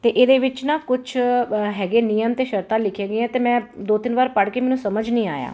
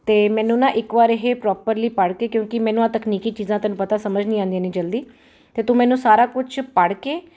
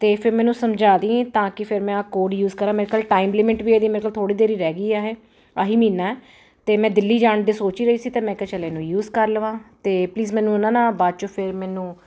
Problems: none marked